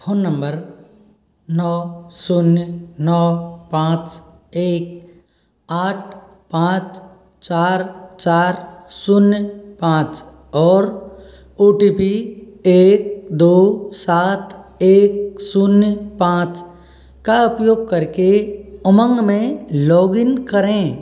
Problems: echo